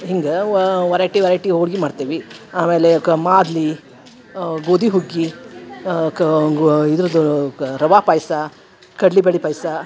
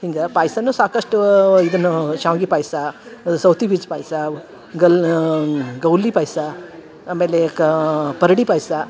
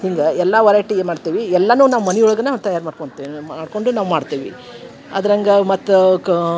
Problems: background sounds at intervals